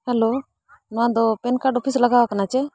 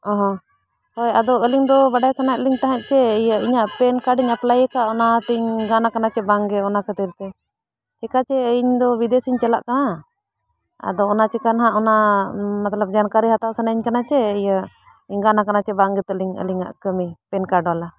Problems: background sounds at intervals